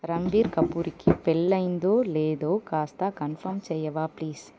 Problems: background sounds at intervals